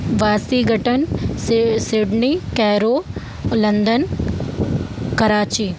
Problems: background sounds at intervals